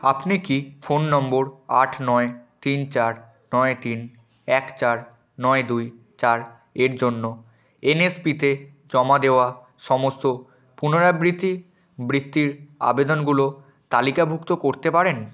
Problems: continuous background conversations